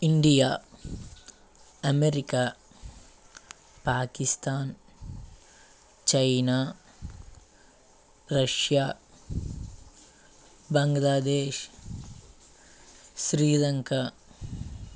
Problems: background sounds at intervals